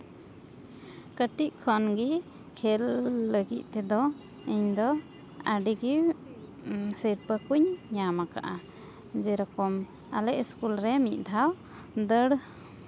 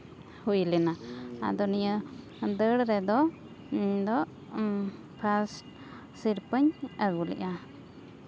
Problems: background sounds at intervals